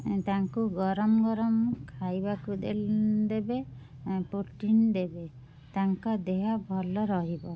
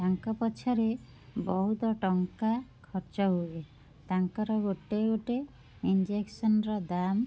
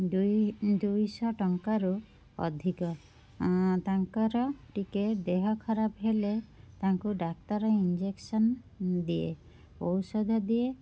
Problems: constant background noise